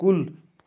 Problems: background sounds at intervals